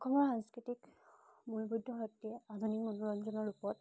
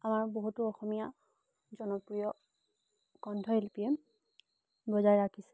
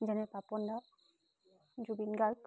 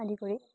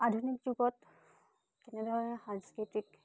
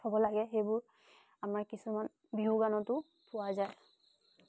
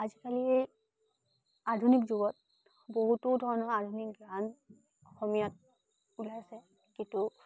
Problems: background sounds at intervals